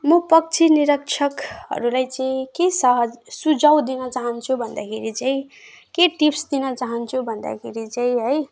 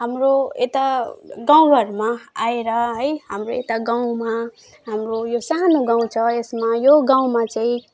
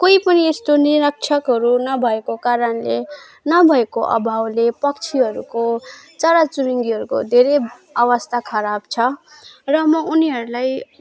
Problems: background sounds at intervals